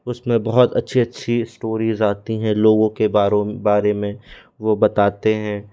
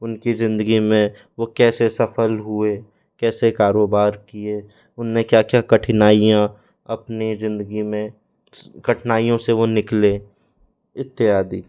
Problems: background sounds at intervals